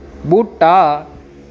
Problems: constant background noise